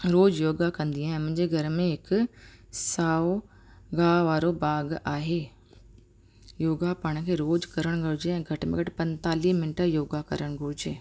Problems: constant background noise